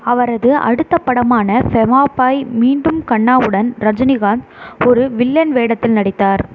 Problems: constant background noise